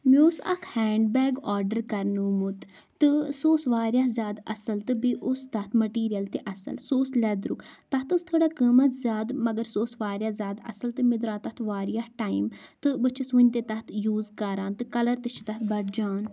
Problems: none marked